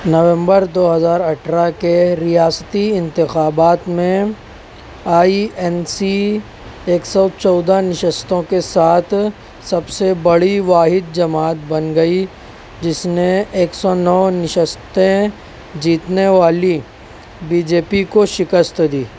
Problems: none marked